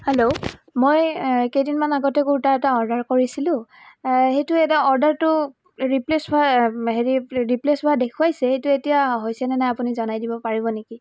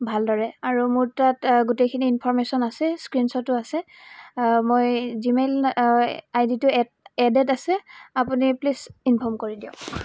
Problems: none marked